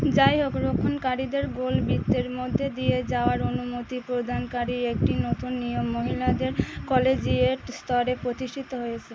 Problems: constant background noise